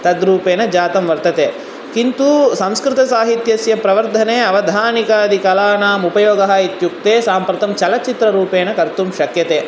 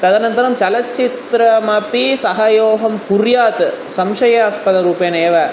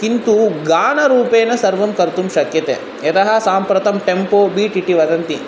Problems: constant background noise